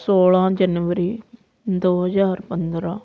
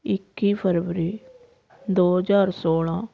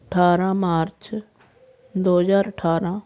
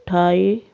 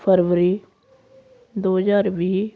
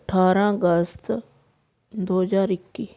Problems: constant background noise